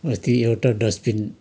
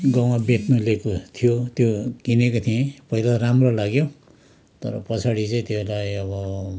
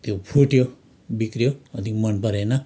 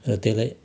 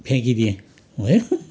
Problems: constant background noise